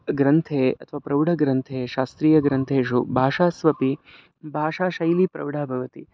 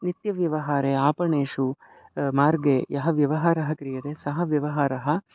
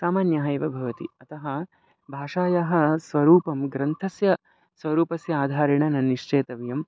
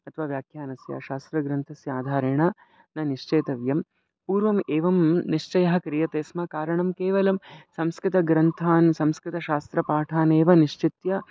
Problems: none marked